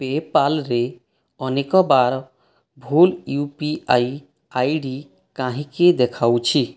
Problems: none marked